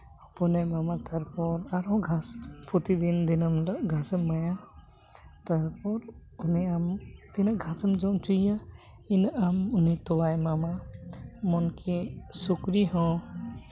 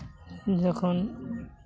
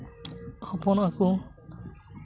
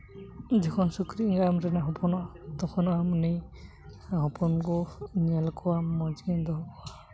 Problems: none marked